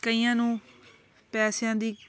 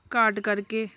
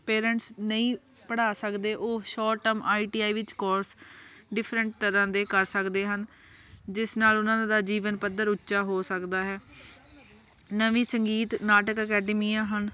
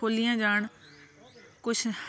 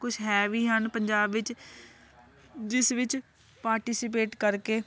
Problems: constant background noise, continuous background conversations